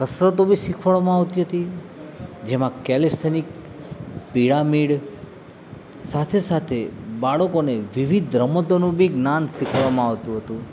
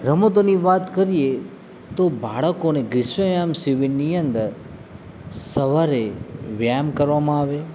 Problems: constant background noise